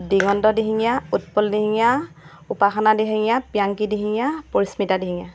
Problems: constant background noise